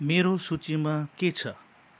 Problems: none marked